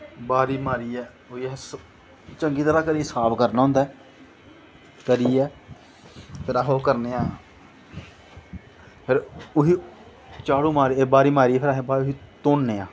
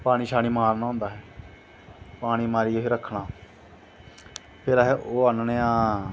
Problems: none marked